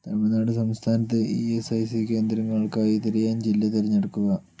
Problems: none marked